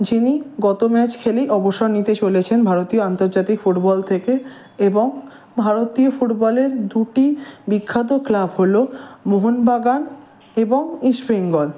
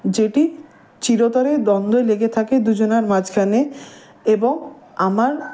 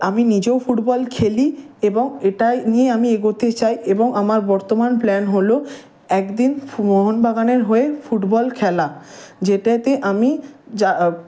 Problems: none marked